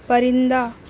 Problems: none marked